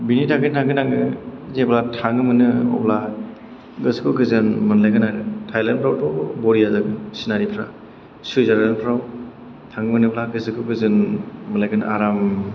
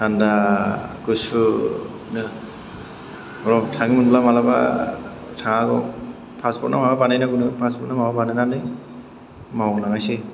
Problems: background sounds at intervals